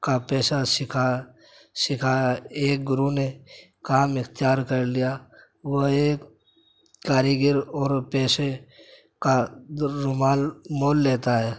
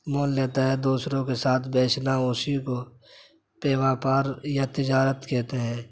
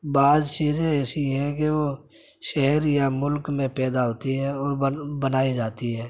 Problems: none marked